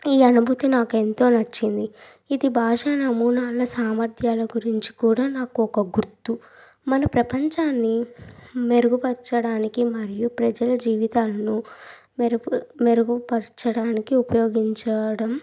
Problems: none marked